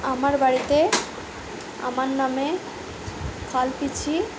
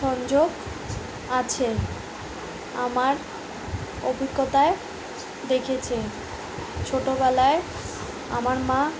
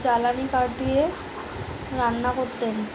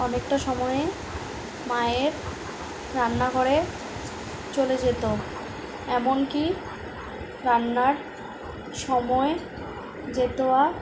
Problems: background sounds at intervals